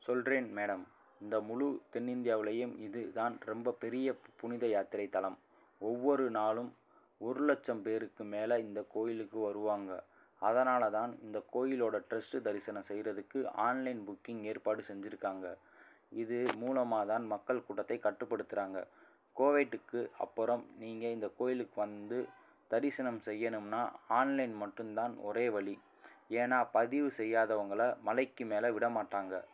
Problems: none marked